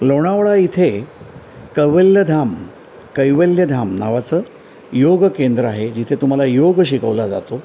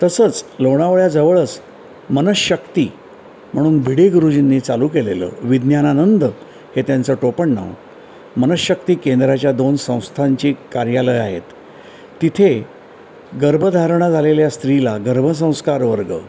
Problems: constant background noise